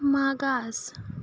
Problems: background sounds at intervals